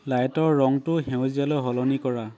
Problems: constant background noise, background conversations at intervals